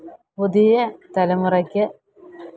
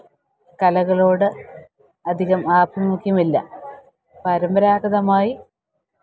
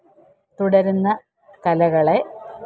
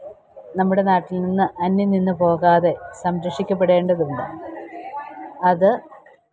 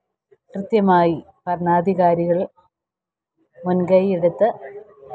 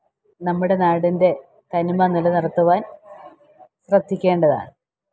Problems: background sounds at intervals, low volume